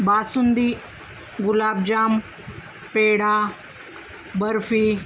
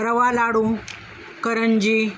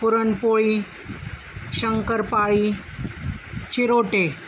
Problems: none marked